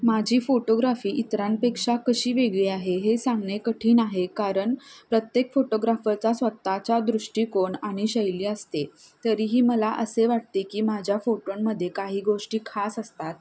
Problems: none marked